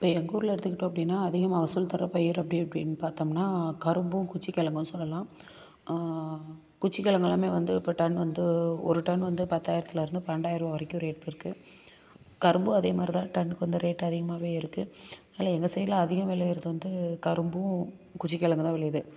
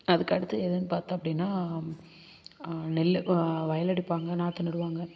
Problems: constant background noise